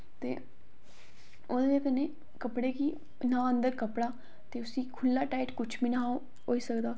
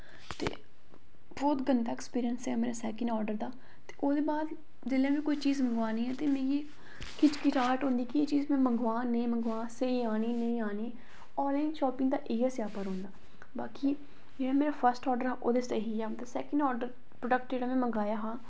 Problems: none marked